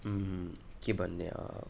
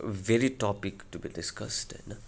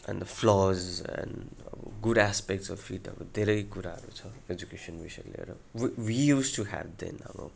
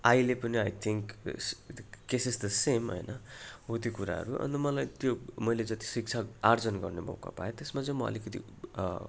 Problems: continuous background conversations